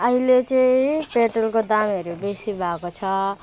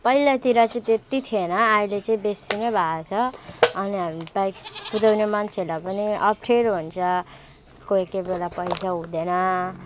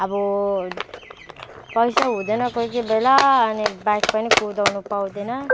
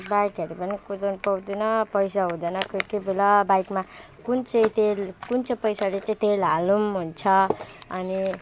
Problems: background sounds at intervals